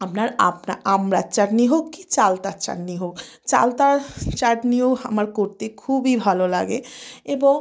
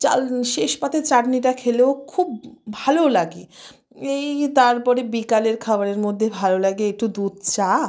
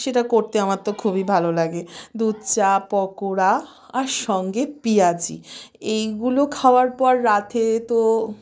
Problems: constant background noise